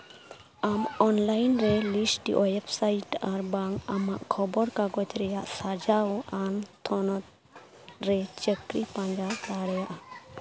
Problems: constant background noise, background conversations at intervals